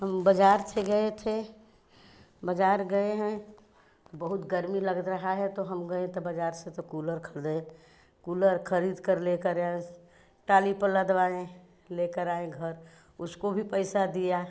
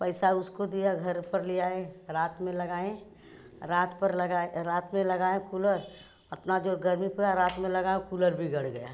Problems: background sounds at intervals